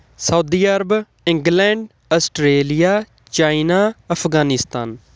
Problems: none marked